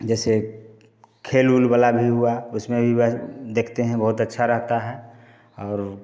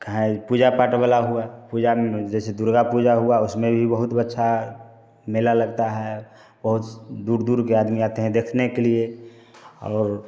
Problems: constant background noise